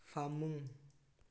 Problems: low volume